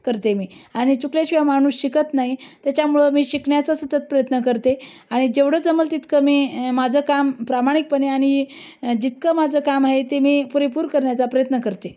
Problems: none marked